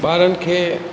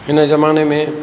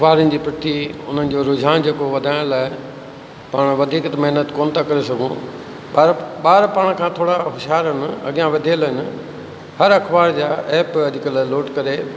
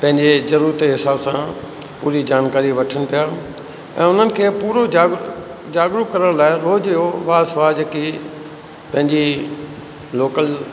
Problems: constant background noise, echo